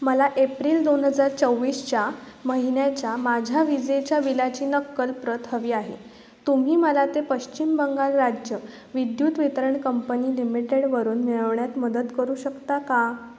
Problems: constant background noise